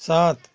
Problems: continuous background conversations